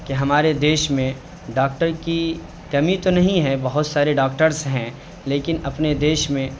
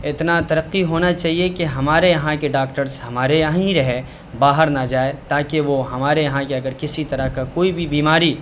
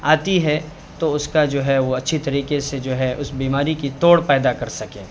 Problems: constant background noise